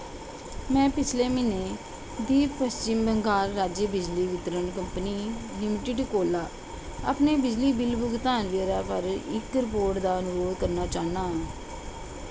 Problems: constant background noise